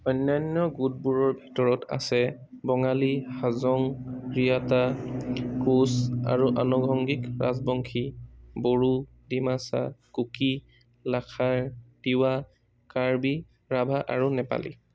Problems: background sounds at intervals